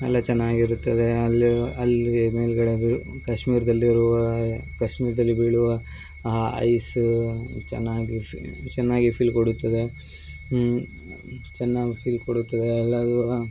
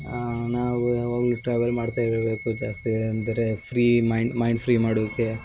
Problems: background sounds at intervals